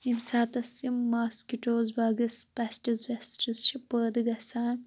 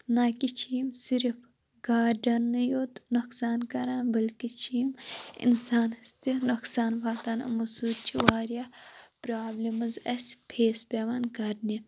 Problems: constant background noise